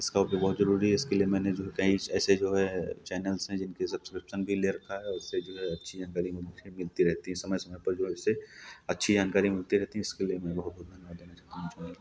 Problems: background sounds at intervals